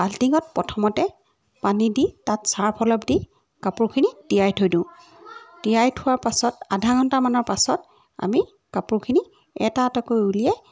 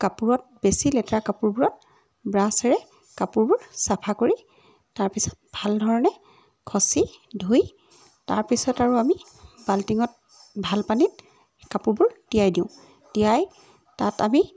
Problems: background sounds at intervals